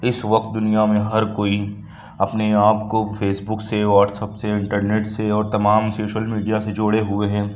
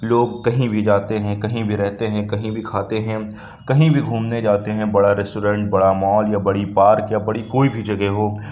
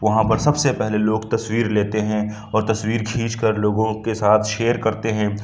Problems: none marked